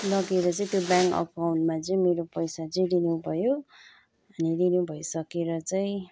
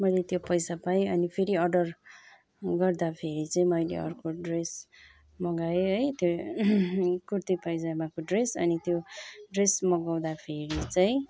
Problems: background sounds at intervals, continuous background conversations